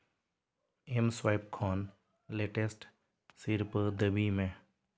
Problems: none marked